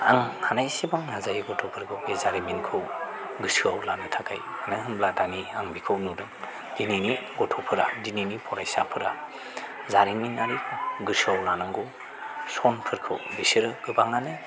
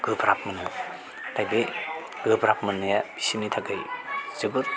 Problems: constant background noise